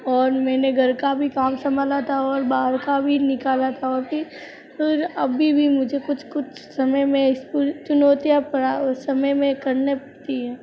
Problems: background sounds at intervals, background conversations at intervals